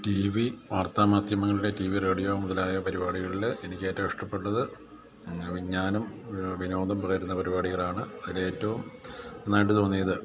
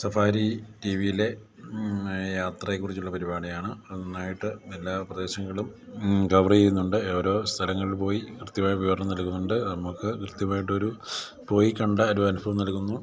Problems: low volume